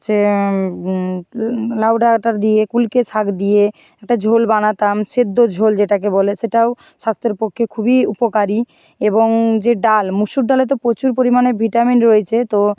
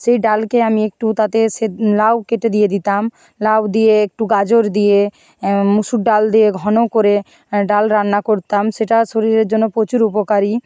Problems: none marked